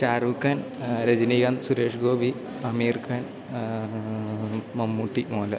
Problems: low volume